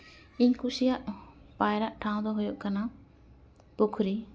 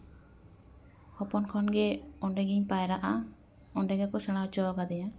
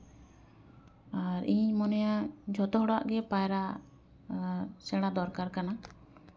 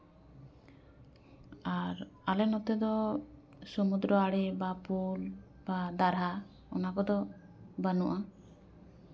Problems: background sounds at intervals